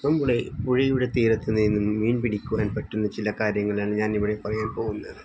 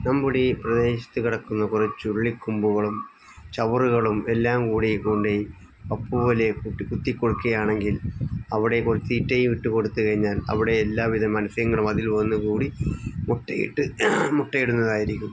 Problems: background sounds at intervals